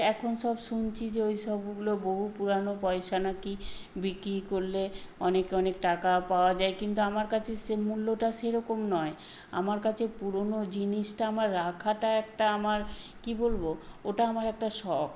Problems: constant background noise